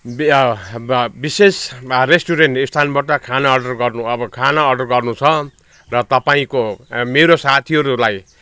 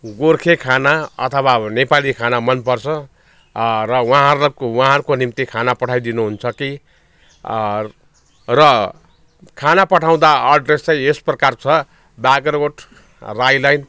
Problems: background sounds at intervals, background conversations at intervals